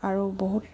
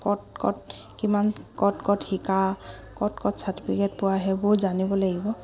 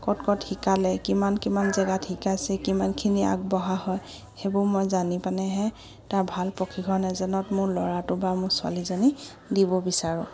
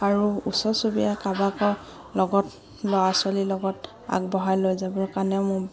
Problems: background sounds at intervals